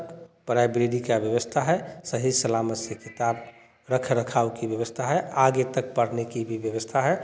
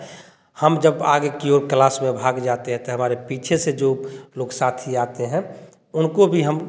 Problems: continuous background conversations